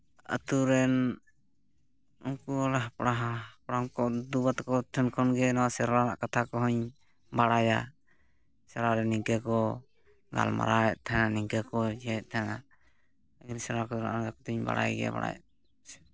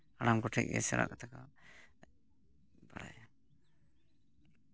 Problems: background sounds at intervals